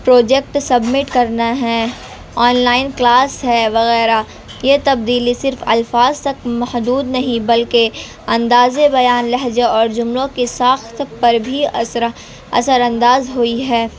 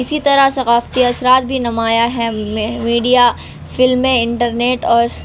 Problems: constant background noise